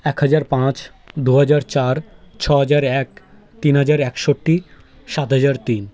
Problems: background sounds at intervals, continuous background conversations